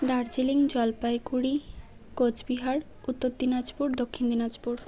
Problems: constant background noise